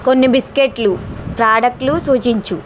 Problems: constant background noise